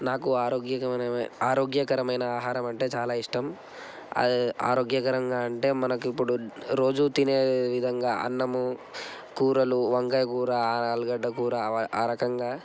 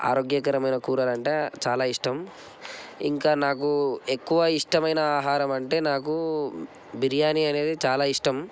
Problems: constant background noise